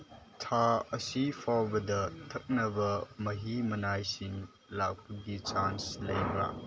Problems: background sounds at intervals